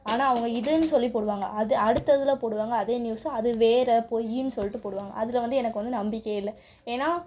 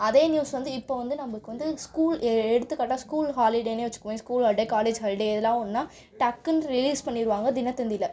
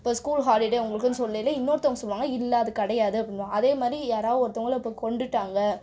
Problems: background conversations at intervals